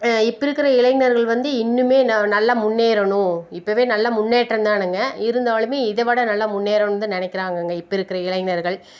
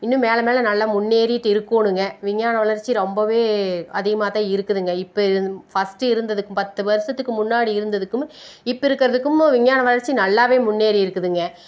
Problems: constant background noise